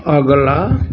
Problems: none marked